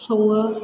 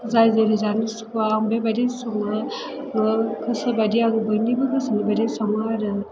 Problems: low volume